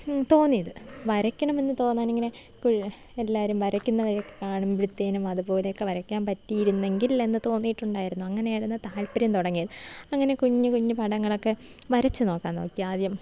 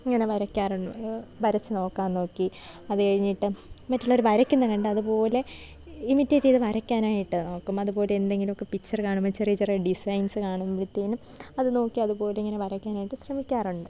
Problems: low volume